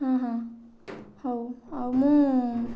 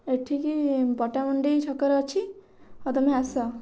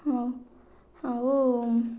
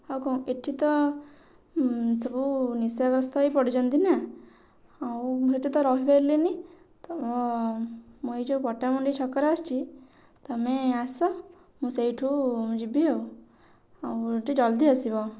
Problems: none marked